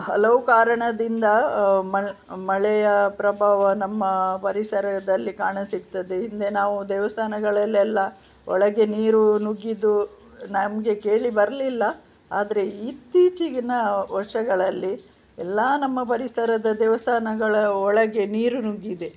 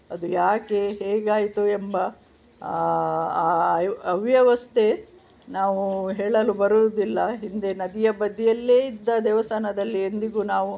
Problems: none marked